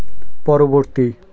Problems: none marked